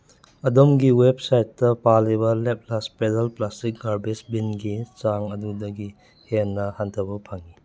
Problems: background sounds at intervals